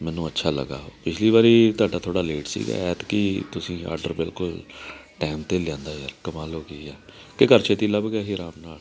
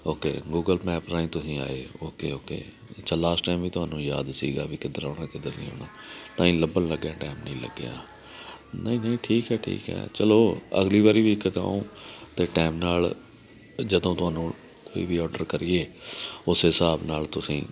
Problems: constant background noise